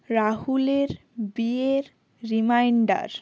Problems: background sounds at intervals